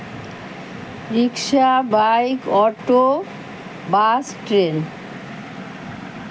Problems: constant background noise